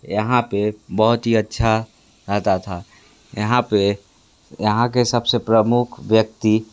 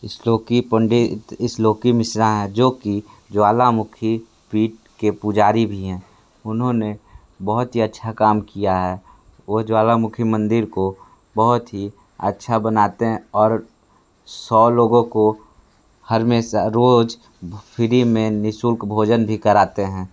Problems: none marked